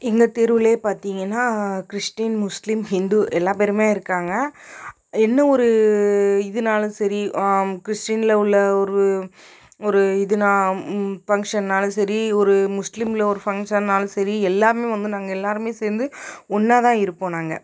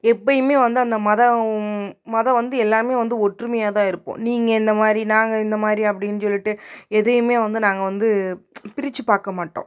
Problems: none marked